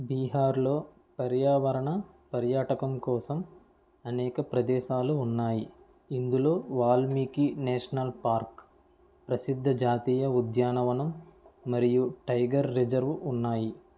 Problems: low volume